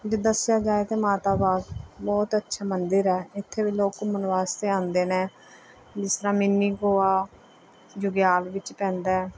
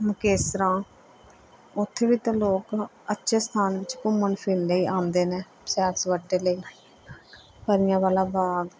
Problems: background conversations at intervals